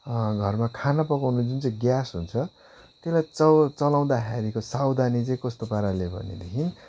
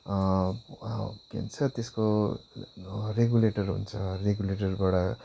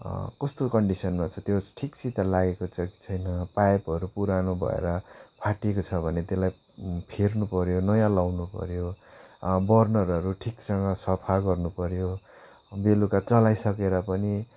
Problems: constant background noise